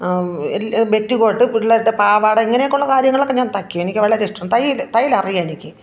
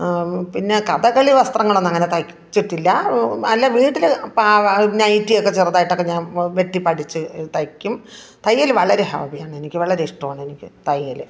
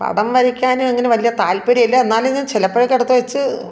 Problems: background conversations at intervals